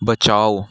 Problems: none marked